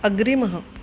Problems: constant background noise